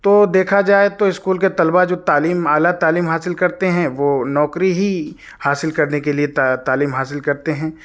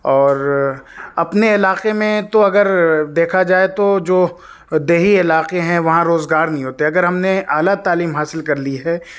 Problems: none marked